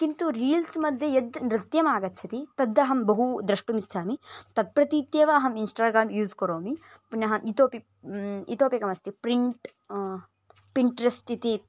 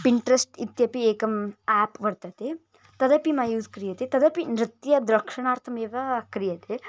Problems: background sounds at intervals